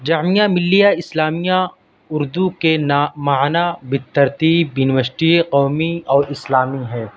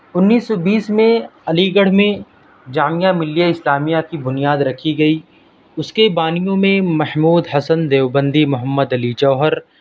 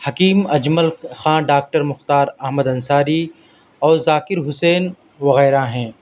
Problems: background sounds at intervals